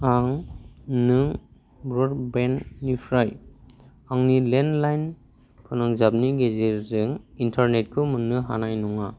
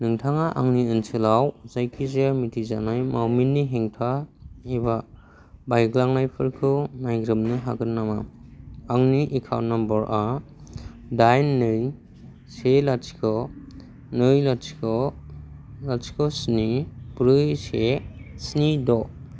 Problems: constant background noise